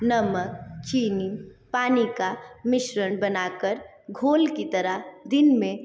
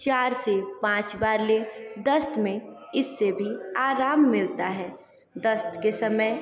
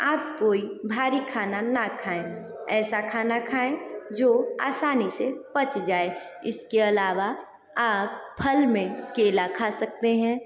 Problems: continuous background conversations, echo